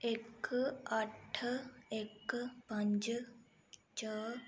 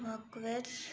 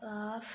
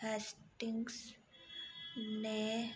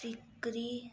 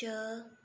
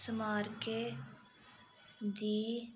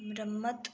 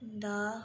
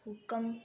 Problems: background sounds at intervals